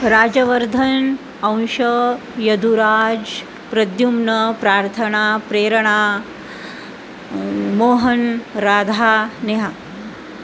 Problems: constant background noise